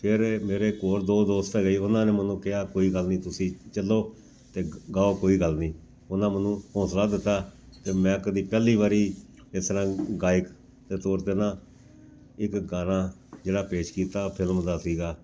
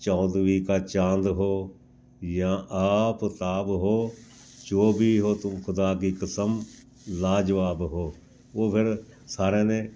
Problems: background sounds at intervals